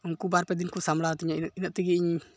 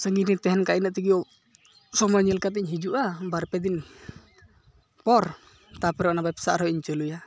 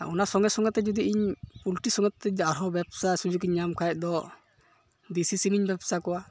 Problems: none marked